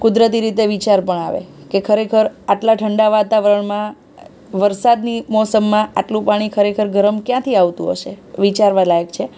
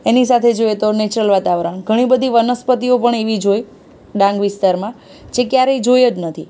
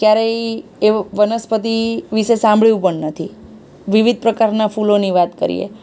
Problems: none marked